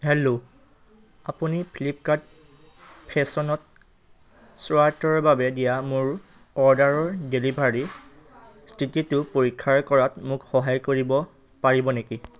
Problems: low volume